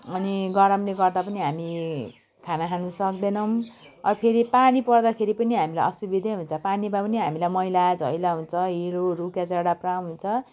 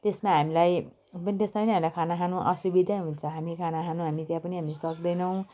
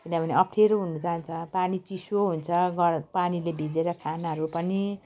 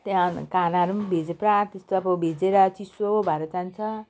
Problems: none marked